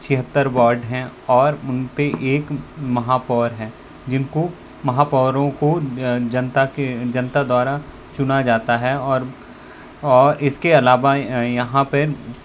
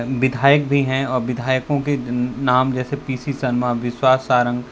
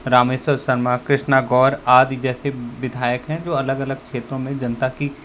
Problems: constant background noise